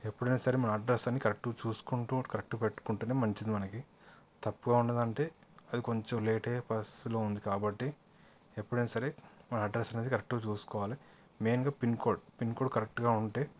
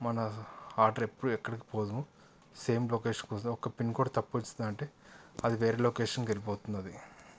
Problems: background sounds at intervals, background conversations at intervals